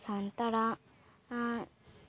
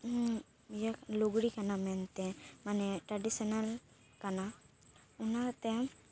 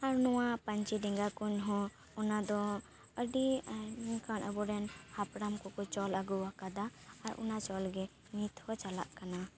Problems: none marked